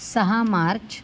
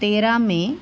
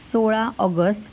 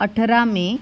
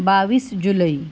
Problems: constant background noise